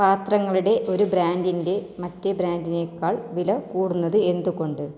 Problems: low volume